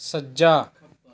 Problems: background conversations at intervals